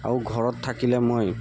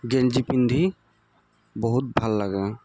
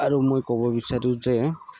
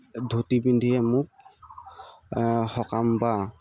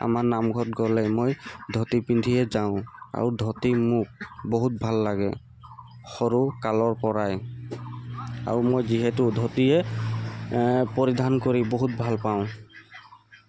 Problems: constant background noise, background conversations at intervals